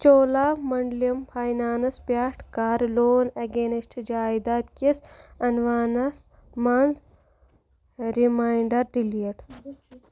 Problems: constant background noise